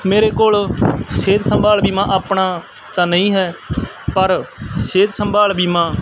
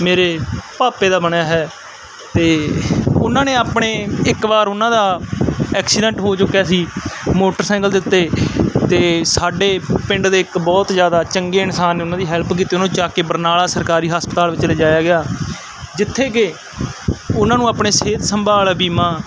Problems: constant background noise